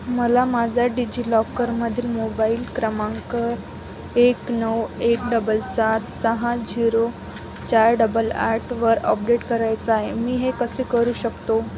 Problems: constant background noise, continuous background conversations